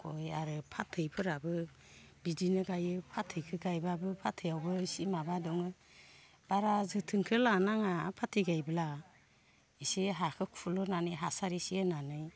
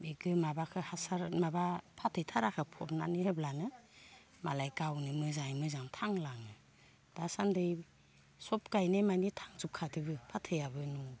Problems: low volume